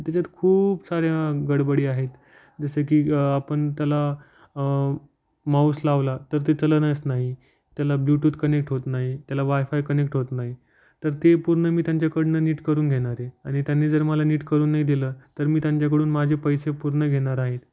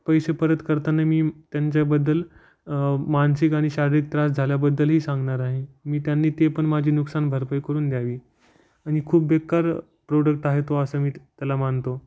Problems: none marked